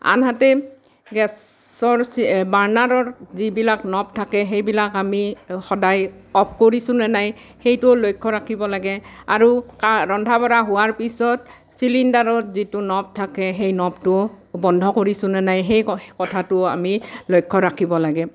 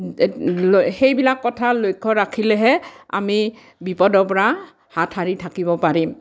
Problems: none marked